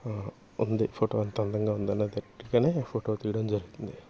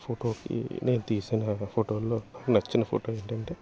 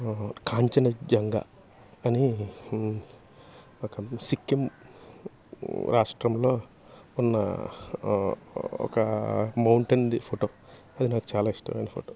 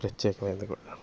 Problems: constant background noise